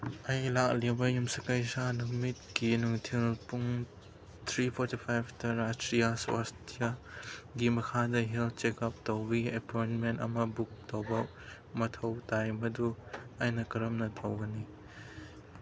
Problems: background sounds at intervals